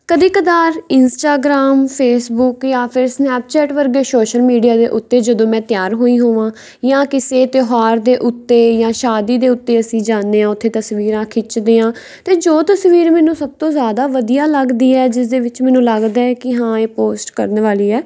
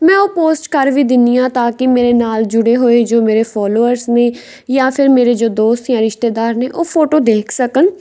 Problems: background sounds at intervals